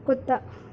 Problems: constant background noise